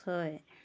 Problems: background sounds at intervals